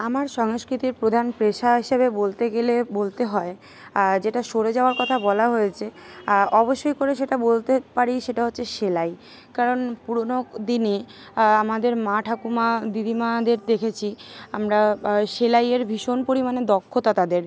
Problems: constant background noise, continuous background conversations